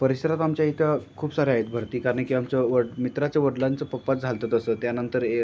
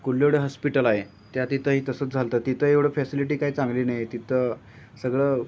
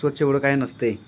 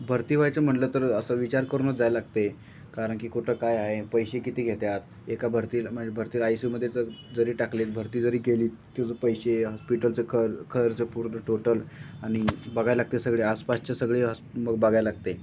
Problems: constant background noise, background conversations at intervals